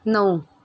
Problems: constant background noise